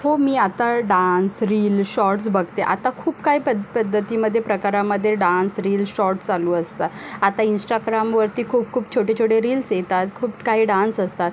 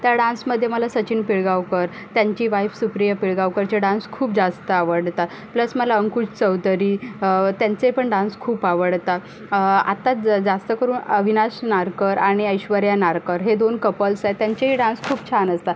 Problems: constant background noise, background conversations at intervals